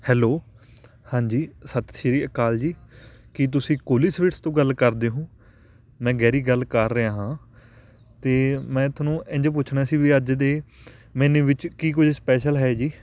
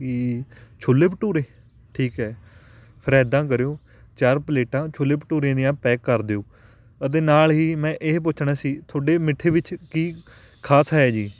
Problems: constant background noise, background conversations at intervals